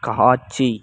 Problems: none marked